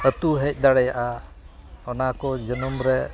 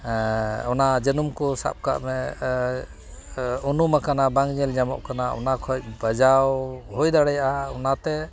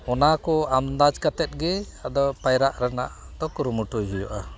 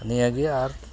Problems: constant background noise, continuous background conversations